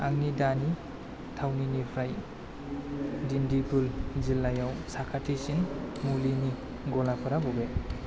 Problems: constant background noise